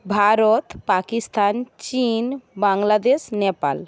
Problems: none marked